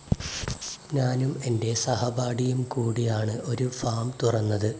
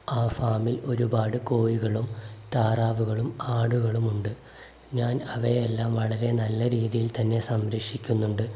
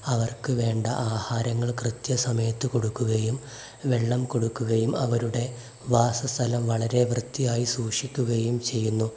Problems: none marked